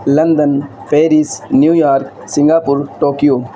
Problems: constant background noise